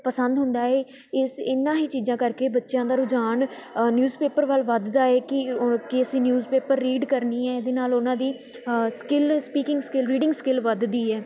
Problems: constant background noise, continuous background conversations